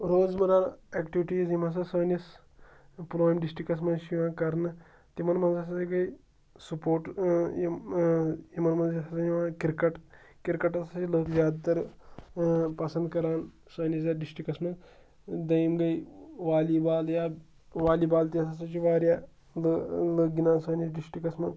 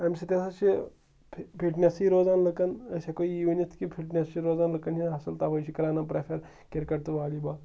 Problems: none marked